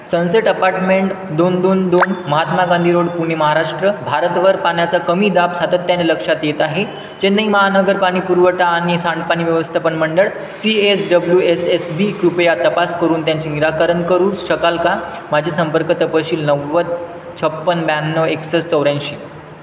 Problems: constant background noise